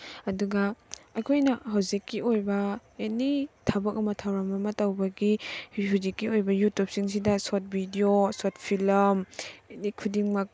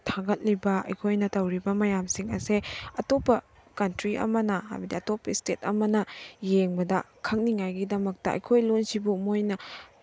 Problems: none marked